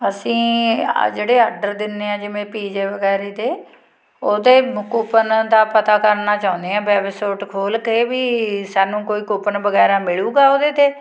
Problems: background sounds at intervals